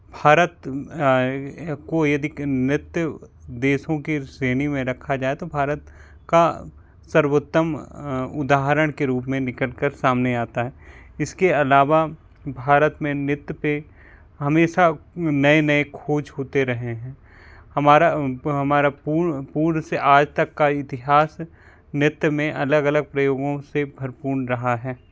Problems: constant background noise